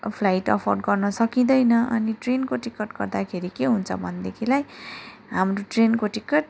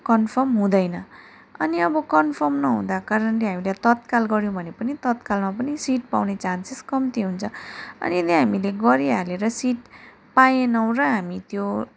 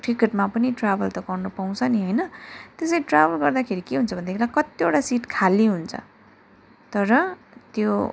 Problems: background sounds at intervals